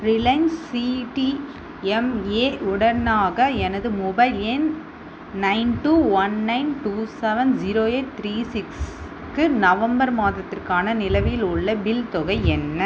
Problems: constant background noise